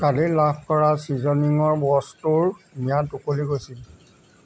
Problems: none marked